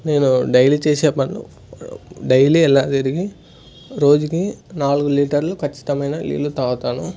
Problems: none marked